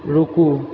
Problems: constant background noise